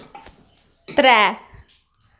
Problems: none marked